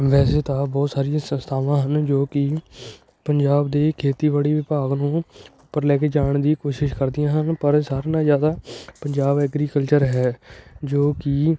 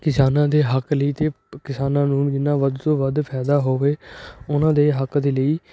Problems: constant background noise